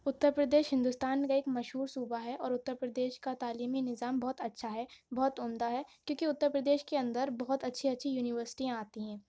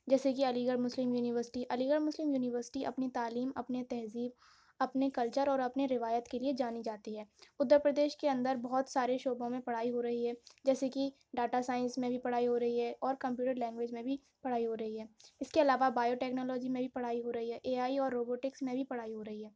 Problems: none marked